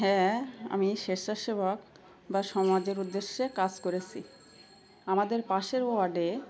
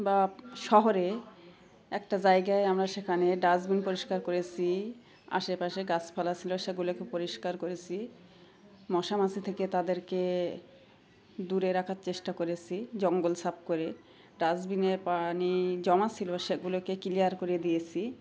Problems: constant background noise, continuous background conversations